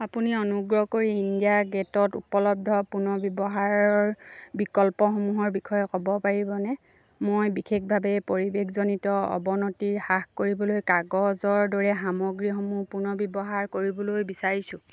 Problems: none marked